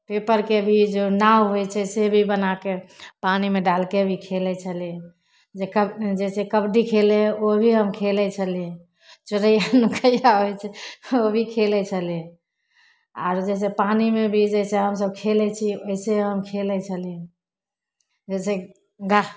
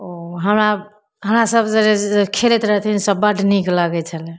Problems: none marked